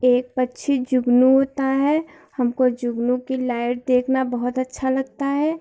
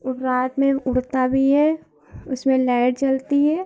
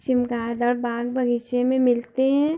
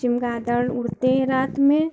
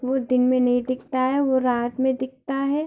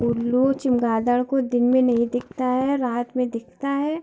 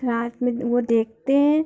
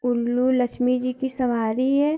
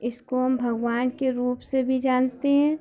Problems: constant background noise, continuous background conversations